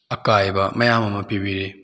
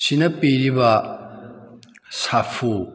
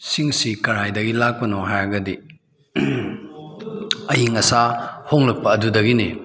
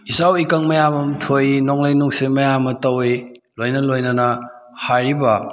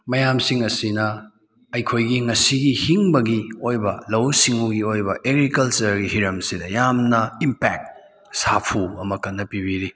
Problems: background conversations at intervals